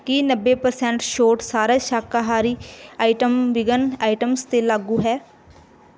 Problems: background sounds at intervals